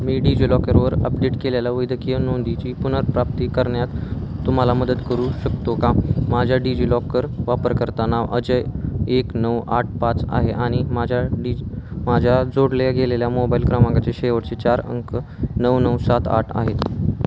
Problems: none marked